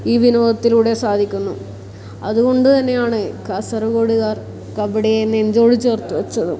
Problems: none marked